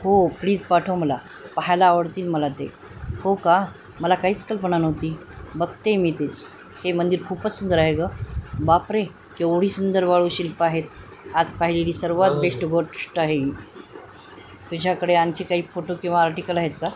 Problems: constant background noise, background conversations at intervals